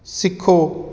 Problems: none marked